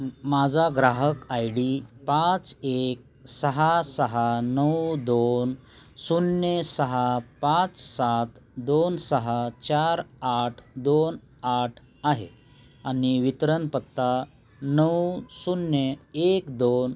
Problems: none marked